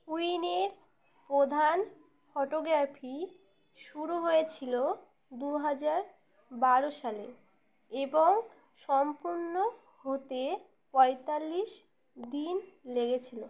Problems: none marked